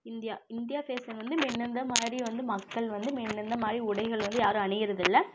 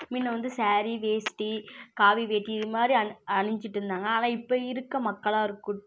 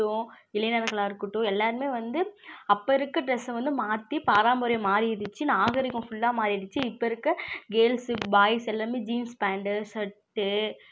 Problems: constant background noise